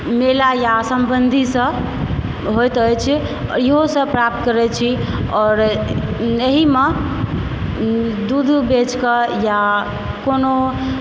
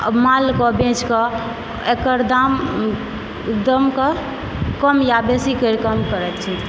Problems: constant background noise